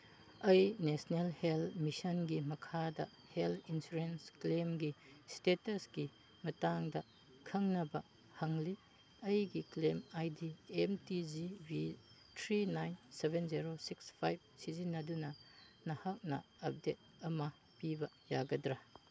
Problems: low volume